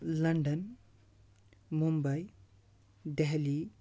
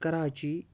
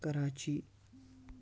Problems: none marked